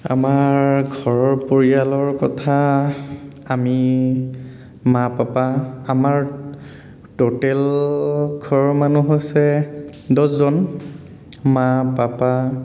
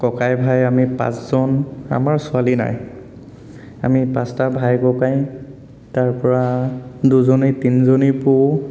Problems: none marked